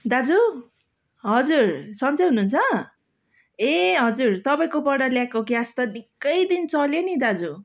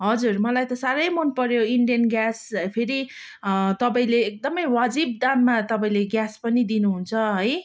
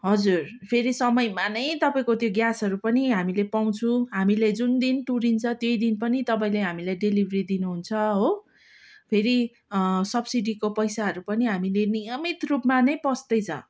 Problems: background sounds at intervals